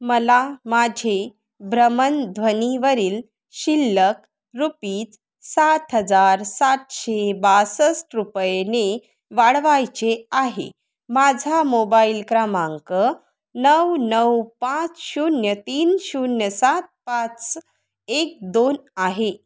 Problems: none marked